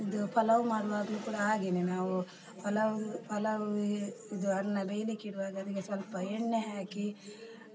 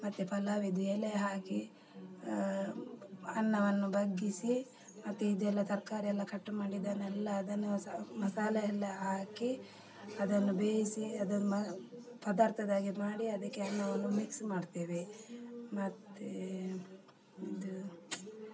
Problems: background sounds at intervals, background conversations at intervals